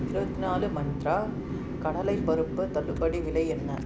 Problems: none marked